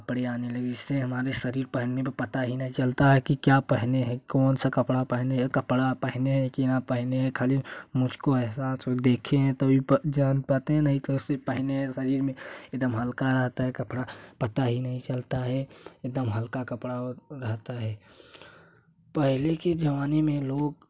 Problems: none marked